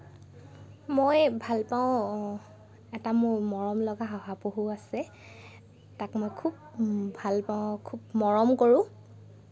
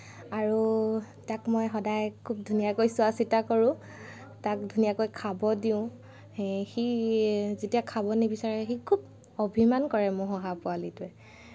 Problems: none marked